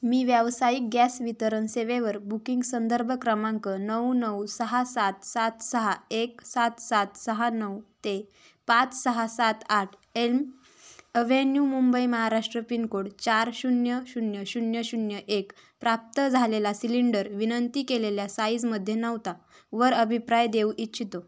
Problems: none marked